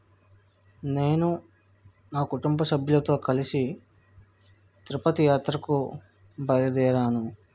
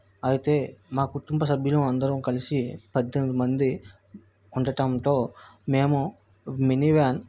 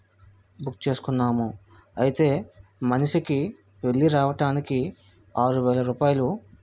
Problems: none marked